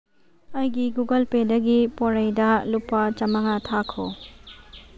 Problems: background sounds at intervals